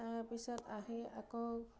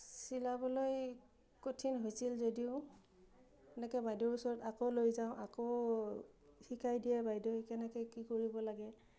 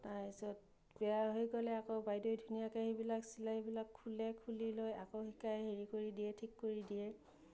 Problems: low volume